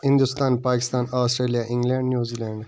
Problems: constant background noise